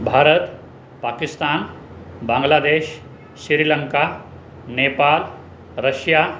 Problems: constant background noise